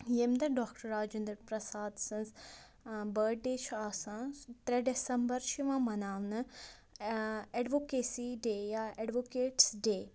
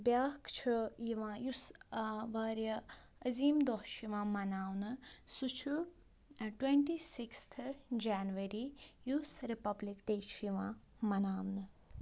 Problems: low volume